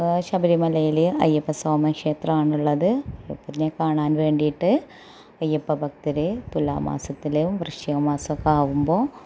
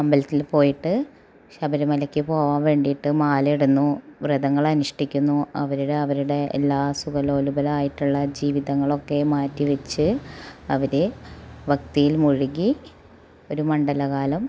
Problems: background sounds at intervals